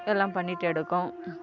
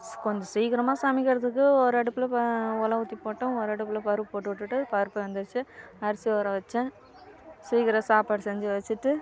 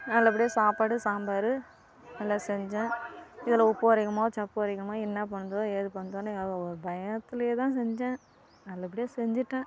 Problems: constant background noise